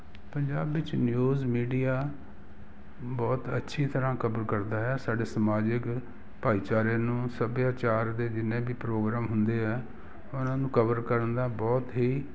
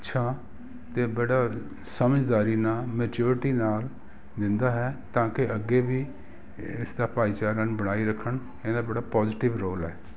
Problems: background sounds at intervals